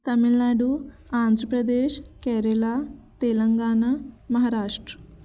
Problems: constant background noise